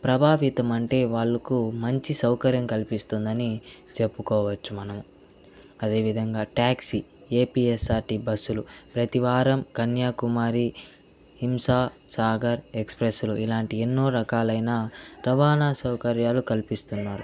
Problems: none marked